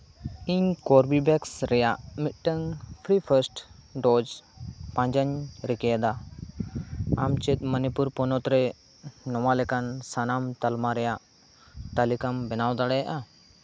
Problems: background sounds at intervals